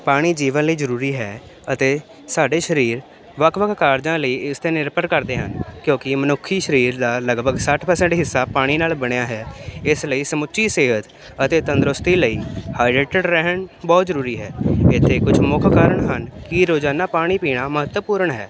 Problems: constant background noise